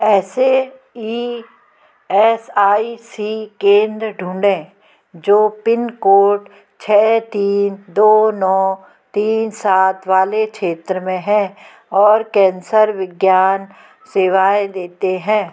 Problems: constant background noise, continuous background conversations